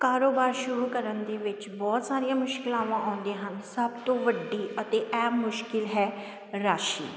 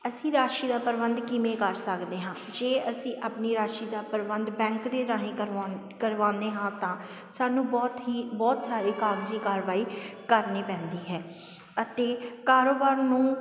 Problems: none marked